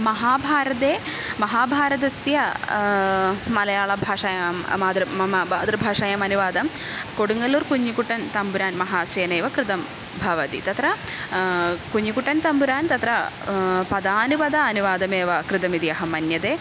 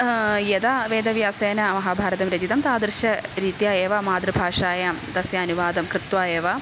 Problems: constant background noise